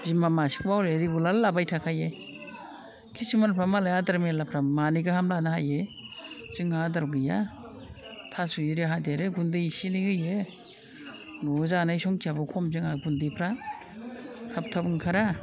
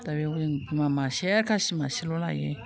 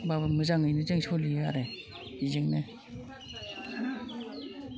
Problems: constant background noise